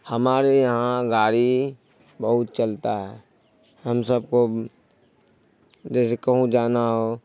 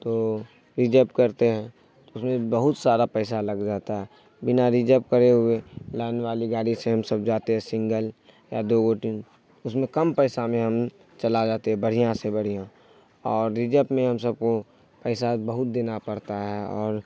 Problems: none marked